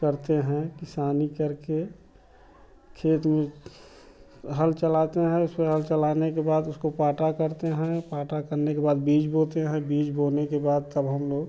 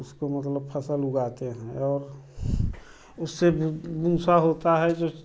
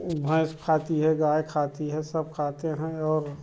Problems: constant background noise